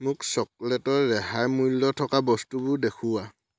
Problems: none marked